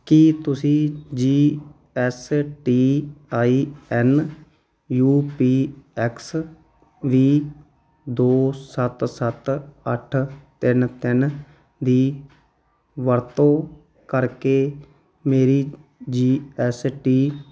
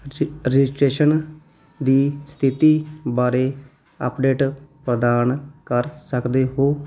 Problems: none marked